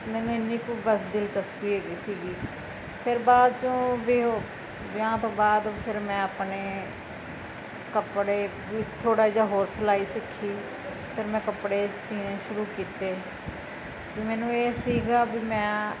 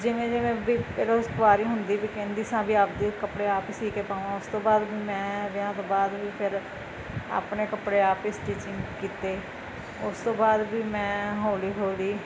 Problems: constant background noise